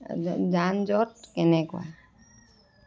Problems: background sounds at intervals, continuous background conversations